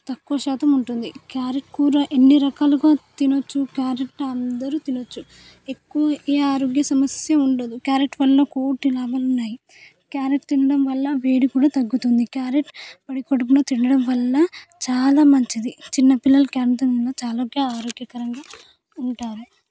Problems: background sounds at intervals, background conversations at intervals